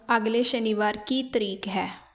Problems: constant background noise